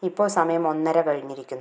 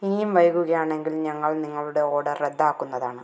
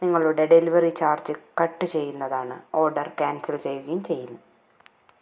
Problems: none marked